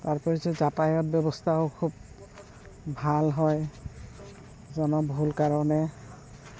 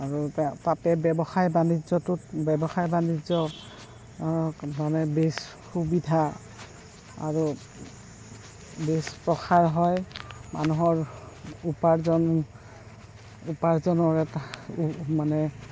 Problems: constant background noise, background conversations at intervals